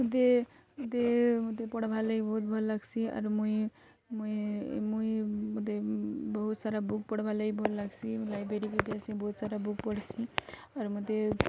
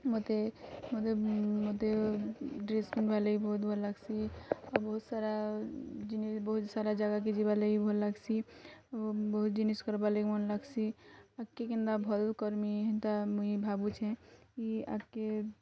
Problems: none marked